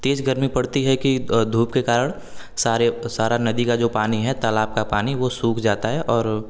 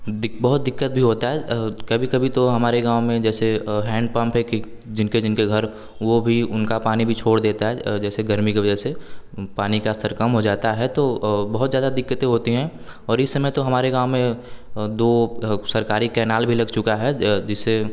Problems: none marked